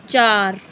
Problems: none marked